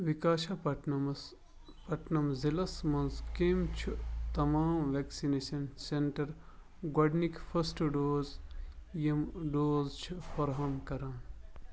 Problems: background sounds at intervals